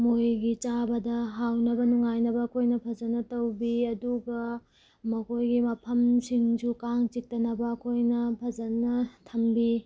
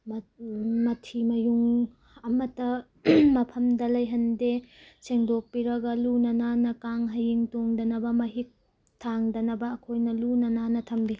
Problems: none marked